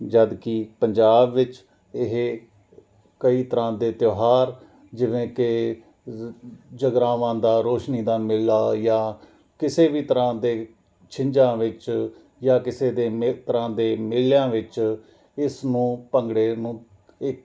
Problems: none marked